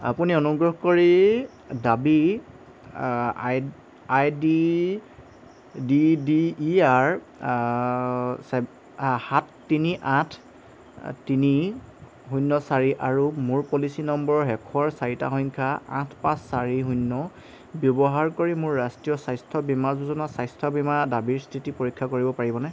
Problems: none marked